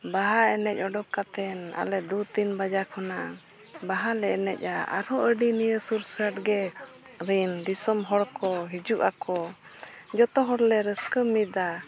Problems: none marked